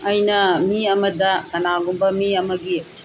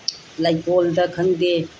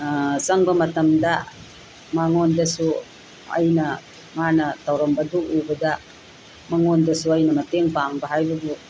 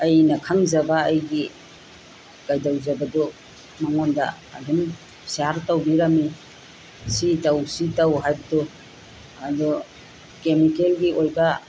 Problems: constant background noise